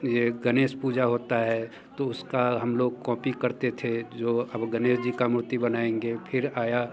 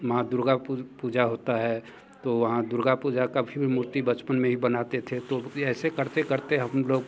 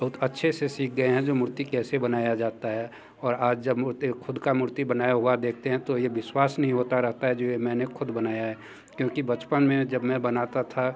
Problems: constant background noise, background conversations at intervals